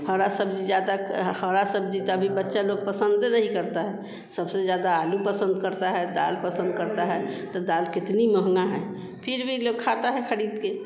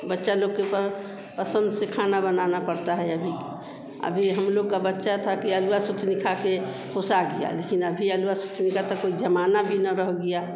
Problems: constant background noise